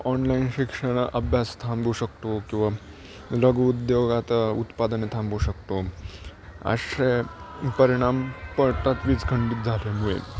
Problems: background sounds at intervals